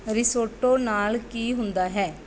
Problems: background sounds at intervals